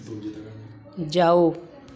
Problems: constant background noise